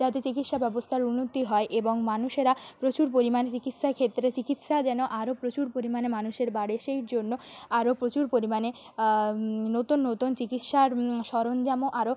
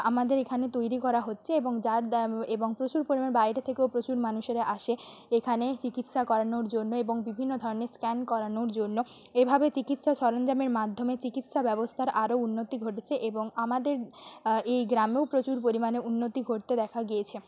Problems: background sounds at intervals